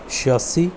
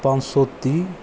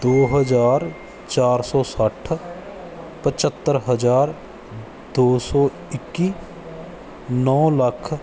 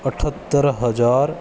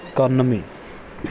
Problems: background sounds at intervals, background conversations at intervals